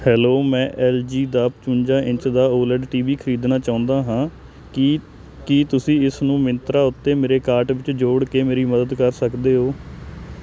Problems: constant background noise